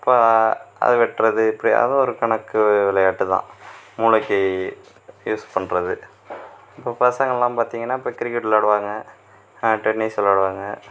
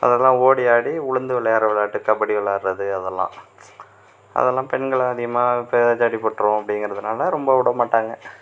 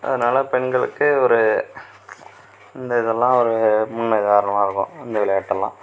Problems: none marked